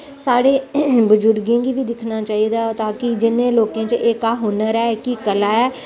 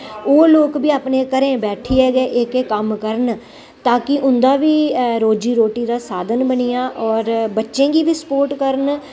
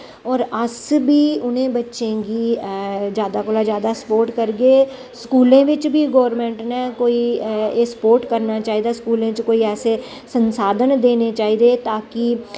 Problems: none marked